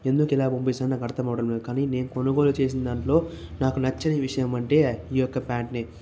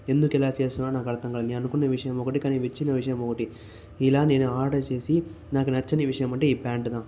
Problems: none marked